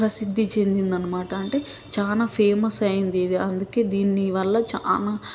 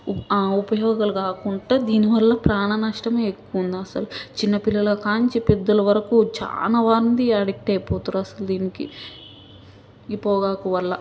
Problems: none marked